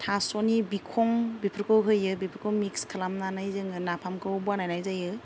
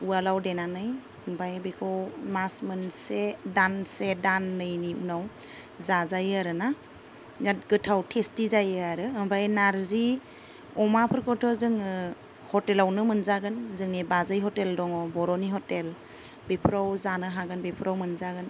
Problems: none marked